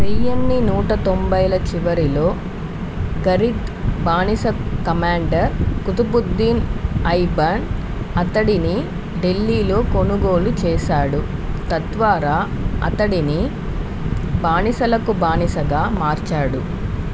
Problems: constant background noise